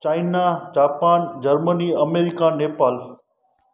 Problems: background sounds at intervals, echo